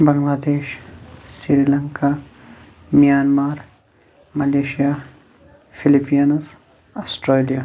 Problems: constant background noise